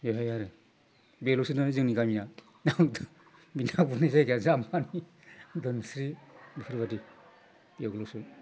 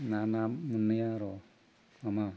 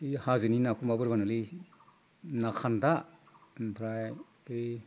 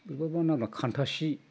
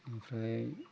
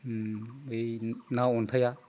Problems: constant background noise